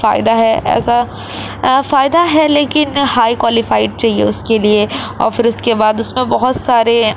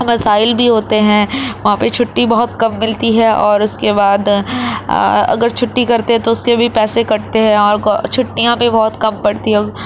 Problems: constant background noise